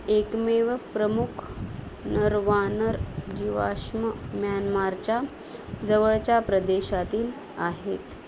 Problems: constant background noise